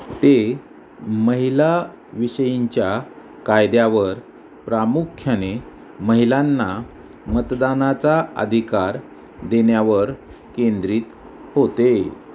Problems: none marked